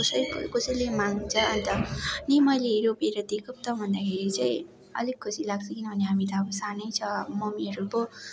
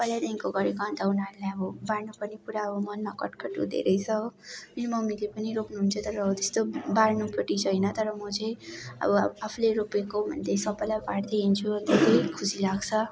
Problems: constant background noise, continuous background conversations